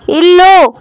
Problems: constant background noise